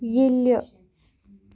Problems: continuous background conversations